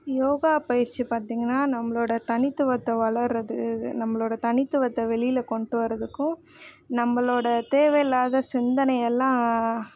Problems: none marked